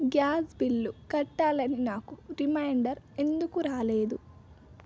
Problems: constant background noise